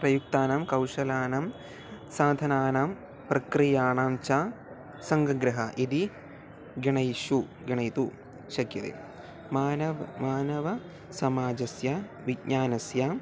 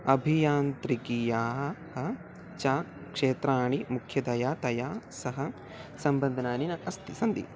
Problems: none marked